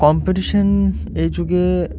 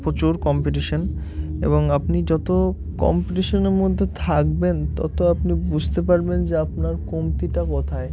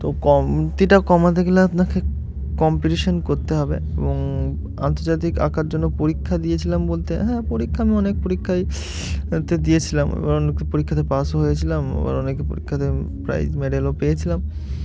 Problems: constant background noise